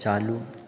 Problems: echo